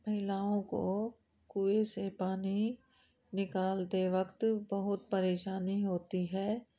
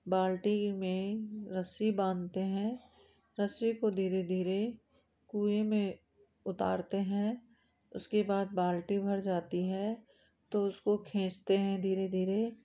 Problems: constant background noise